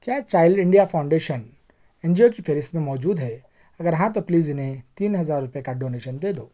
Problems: none marked